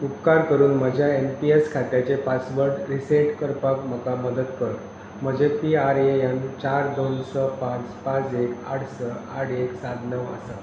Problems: none marked